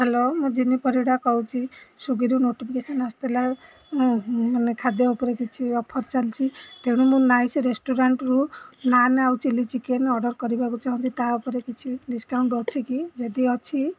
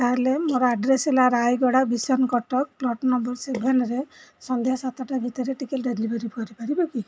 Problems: none marked